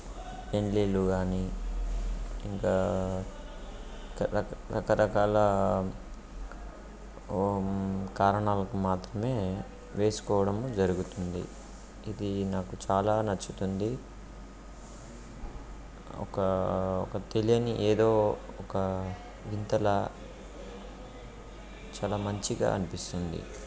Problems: background sounds at intervals